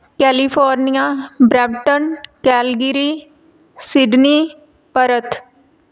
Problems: none marked